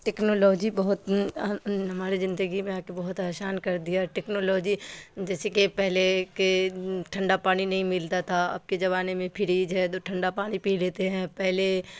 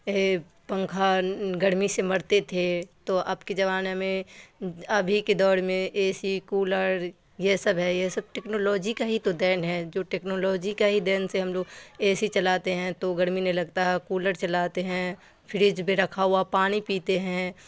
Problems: constant background noise